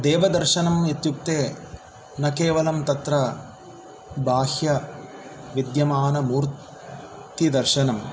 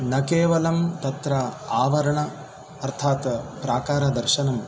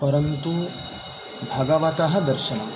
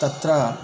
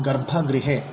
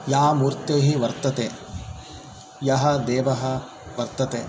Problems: none marked